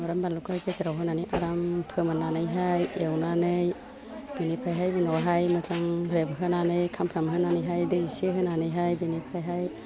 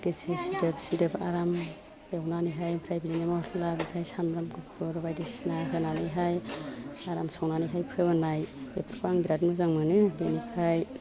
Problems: low volume